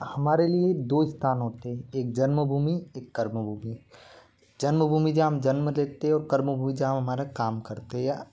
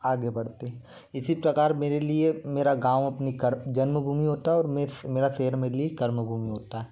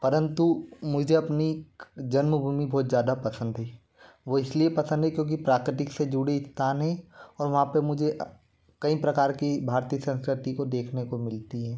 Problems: constant background noise